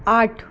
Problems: background sounds at intervals